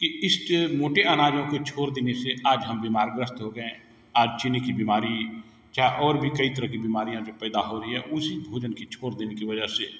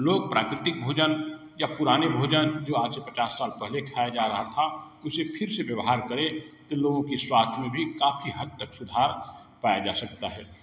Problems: none marked